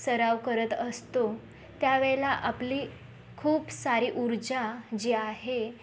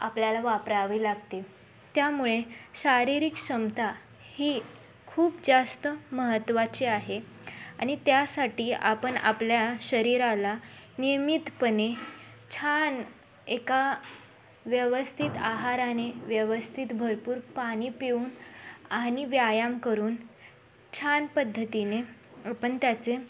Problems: constant background noise